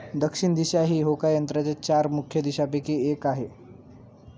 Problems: none marked